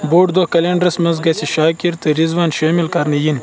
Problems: constant background noise